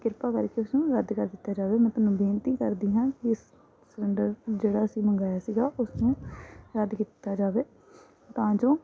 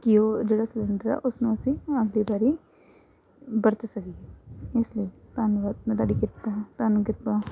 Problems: background sounds at intervals